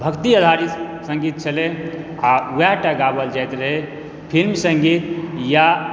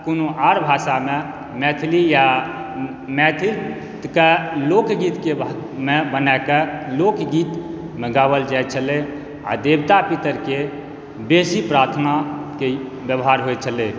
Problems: none marked